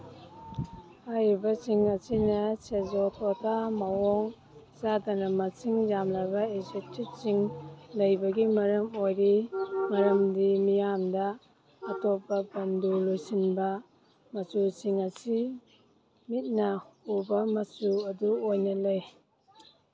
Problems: background sounds at intervals, background conversations at intervals